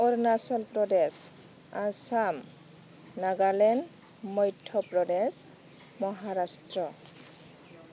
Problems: constant background noise